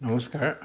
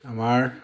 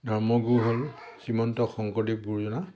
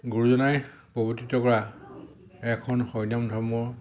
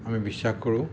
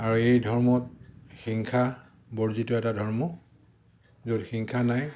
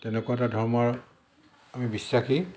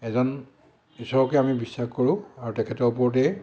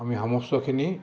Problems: background sounds at intervals